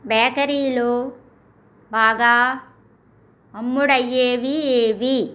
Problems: none marked